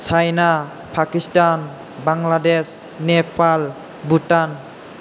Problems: constant background noise